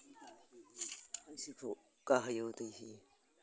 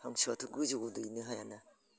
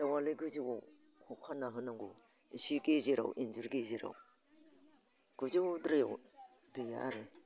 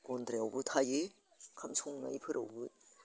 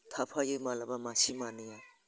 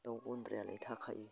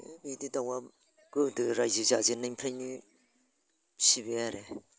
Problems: constant background noise